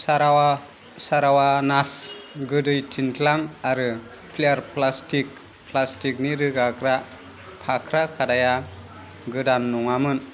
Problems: constant background noise